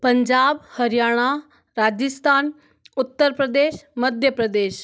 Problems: none marked